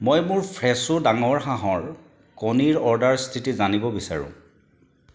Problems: background sounds at intervals